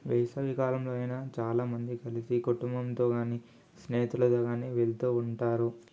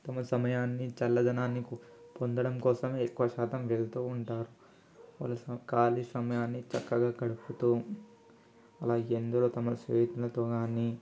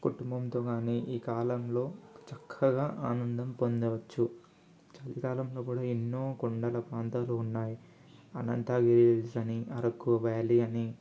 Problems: none marked